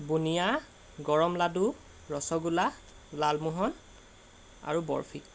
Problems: none marked